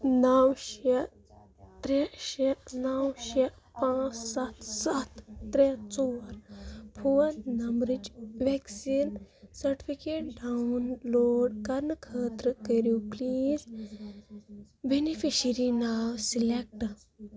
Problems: background sounds at intervals, background conversations at intervals